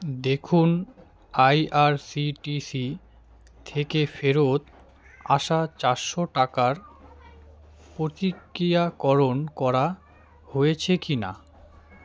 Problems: constant background noise, continuous background conversations